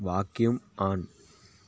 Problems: none marked